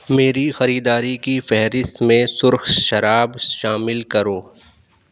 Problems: none marked